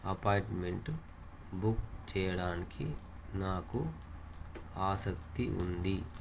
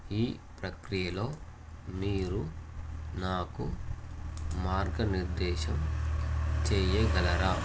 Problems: constant background noise